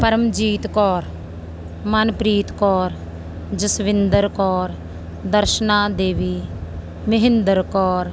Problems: background sounds at intervals